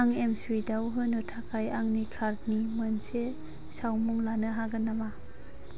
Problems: constant background noise